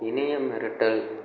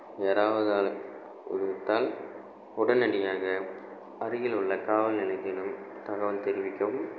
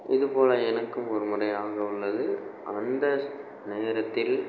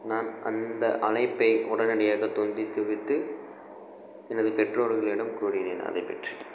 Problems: constant background noise